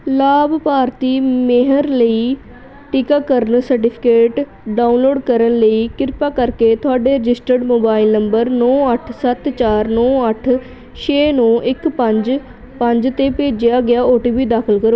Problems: continuous background conversations